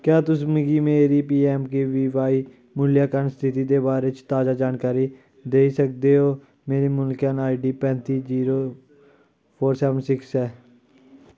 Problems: none marked